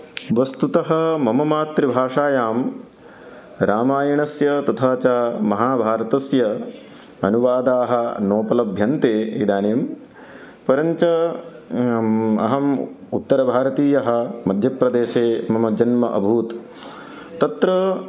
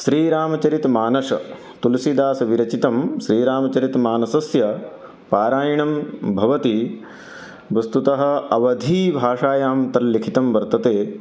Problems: none marked